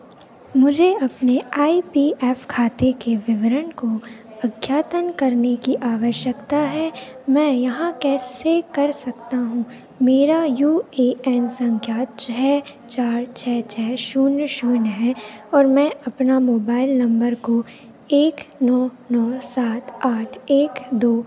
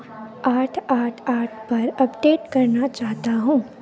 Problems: none marked